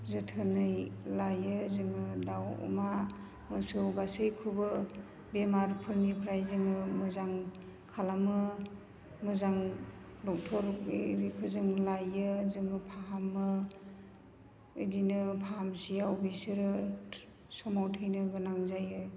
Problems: constant background noise